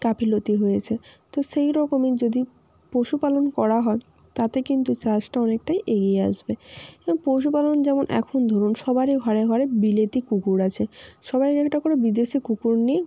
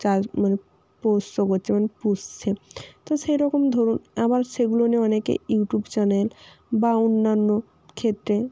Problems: constant background noise